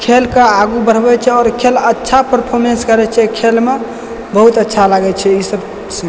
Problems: background sounds at intervals